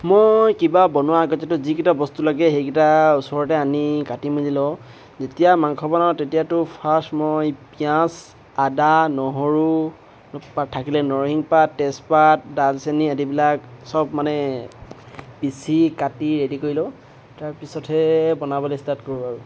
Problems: constant background noise